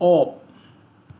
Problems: background sounds at intervals